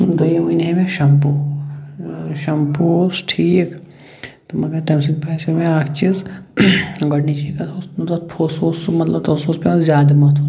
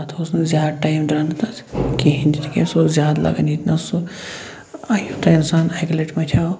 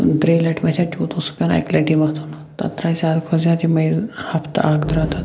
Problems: constant background noise